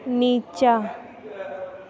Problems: background conversations at intervals